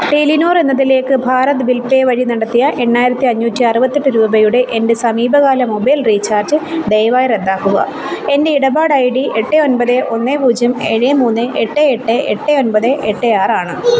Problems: constant background noise